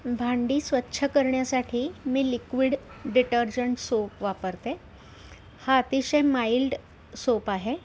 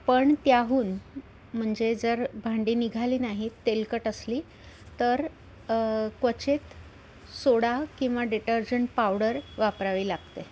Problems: none marked